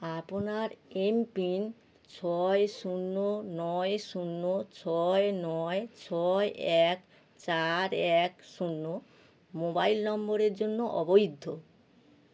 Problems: none marked